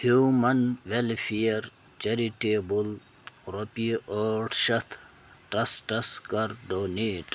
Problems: constant background noise